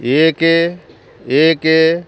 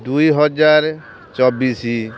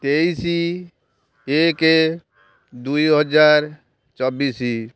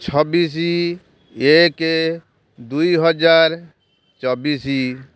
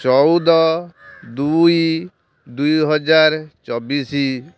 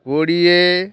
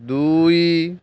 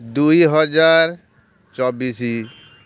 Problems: constant background noise